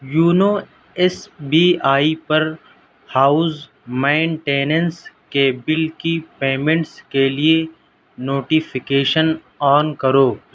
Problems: none marked